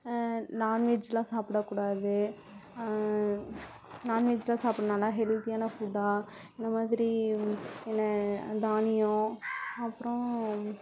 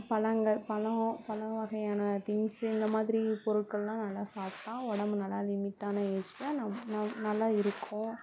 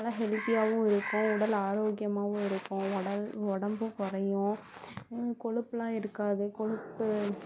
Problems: constant background noise